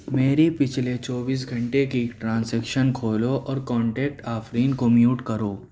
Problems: background sounds at intervals